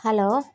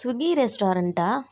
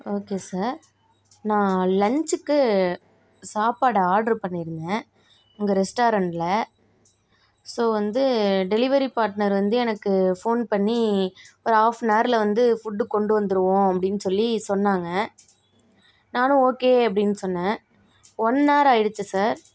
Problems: background sounds at intervals